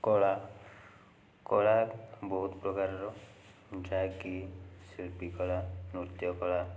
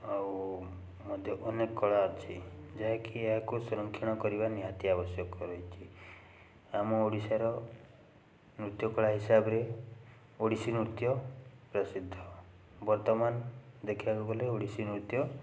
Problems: background conversations at intervals